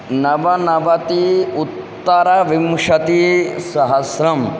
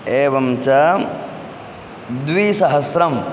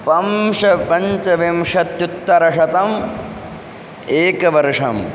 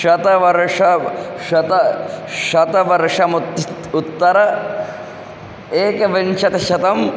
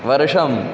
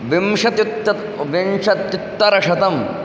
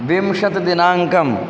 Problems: constant background noise, background conversations at intervals